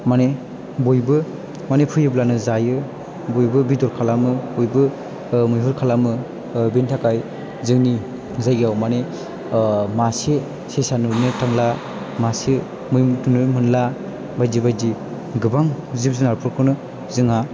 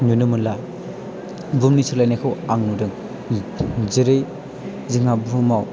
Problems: none marked